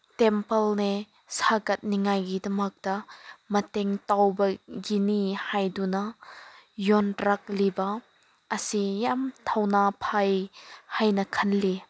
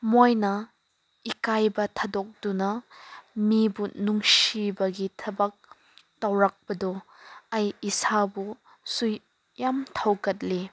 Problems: none marked